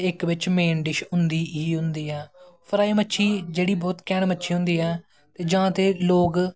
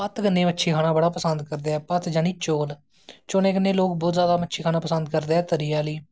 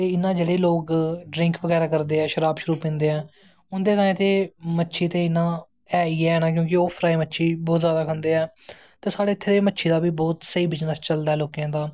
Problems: none marked